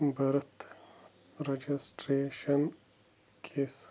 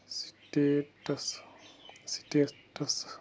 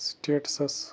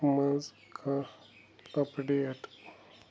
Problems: none marked